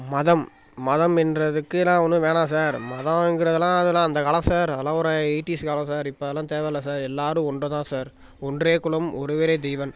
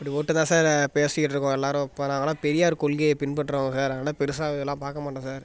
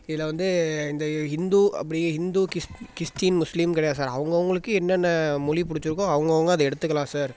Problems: background sounds at intervals